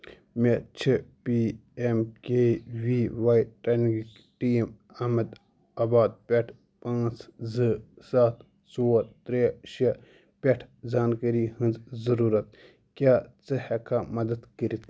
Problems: none marked